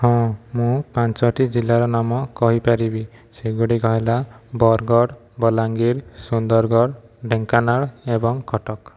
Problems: none marked